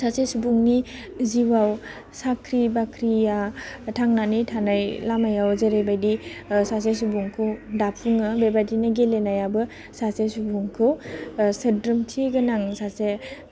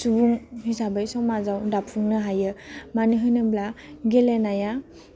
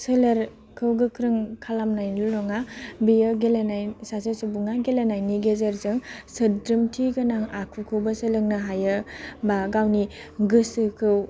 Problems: low volume